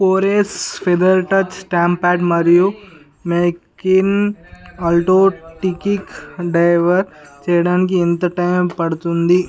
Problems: background conversations at intervals